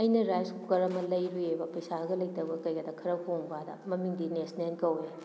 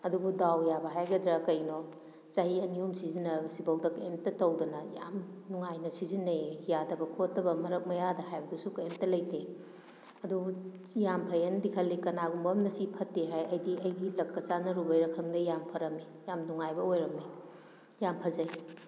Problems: echo